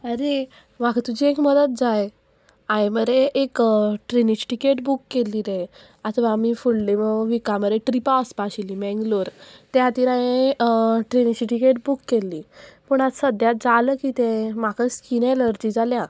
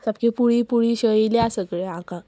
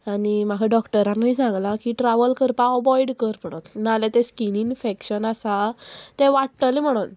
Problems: constant background noise, background conversations at intervals